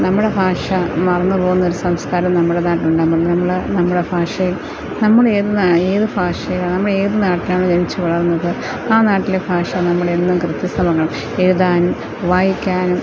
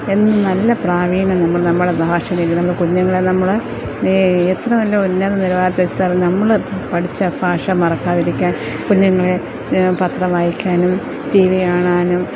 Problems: constant background noise, low volume